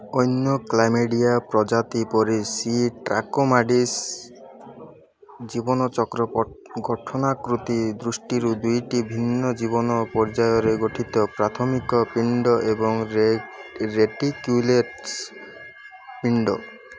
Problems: constant background noise